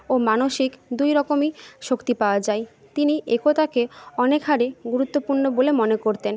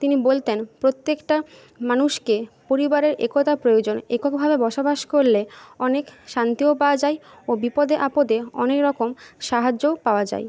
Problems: background conversations at intervals